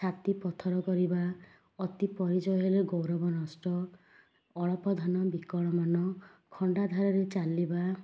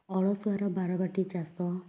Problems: none marked